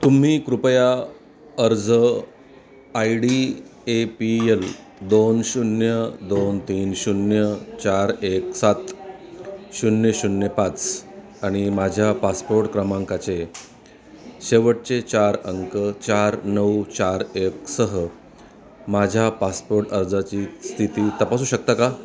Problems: continuous background conversations